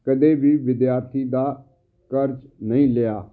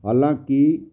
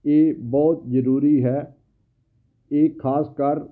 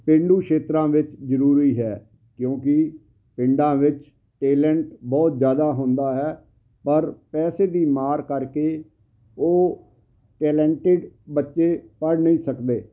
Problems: constant background noise